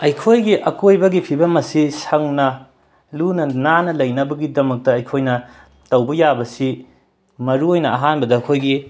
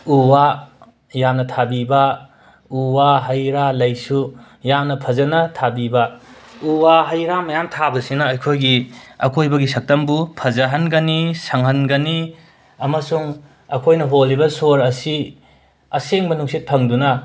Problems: background sounds at intervals, background conversations at intervals